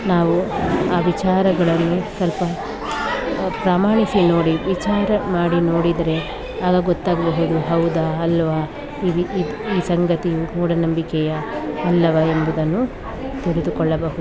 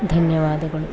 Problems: constant background noise